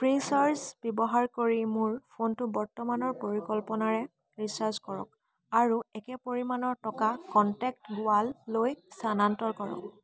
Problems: constant background noise, background conversations at intervals